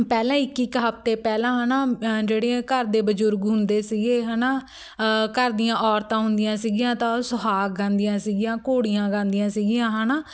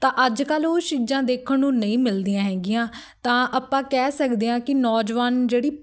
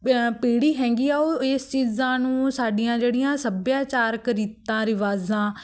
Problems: background sounds at intervals, background conversations at intervals